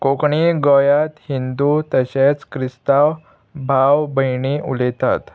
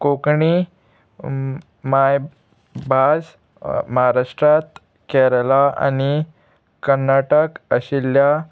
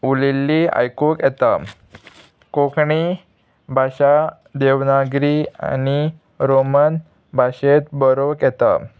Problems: constant background noise, background conversations at intervals